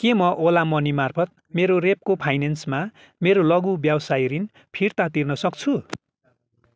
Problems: none marked